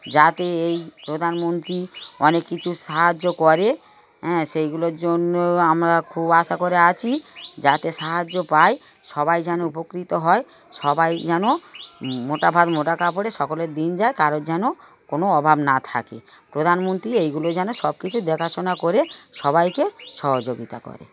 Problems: background sounds at intervals, background conversations at intervals